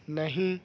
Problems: background sounds at intervals